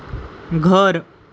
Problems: background sounds at intervals